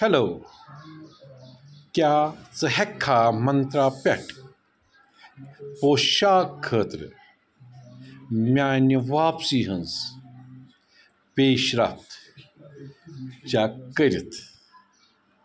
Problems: none marked